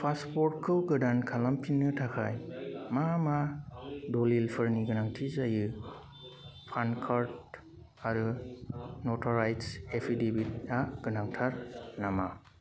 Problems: constant background noise